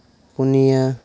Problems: none marked